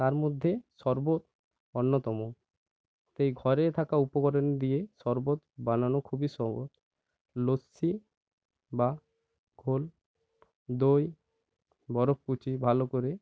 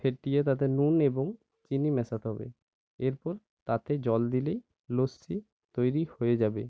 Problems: none marked